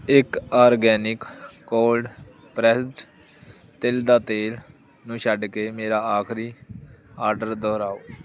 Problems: constant background noise